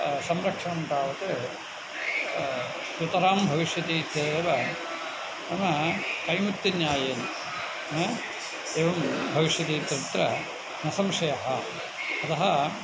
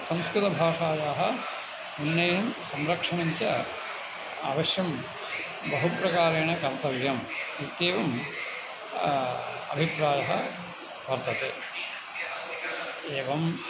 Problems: constant background noise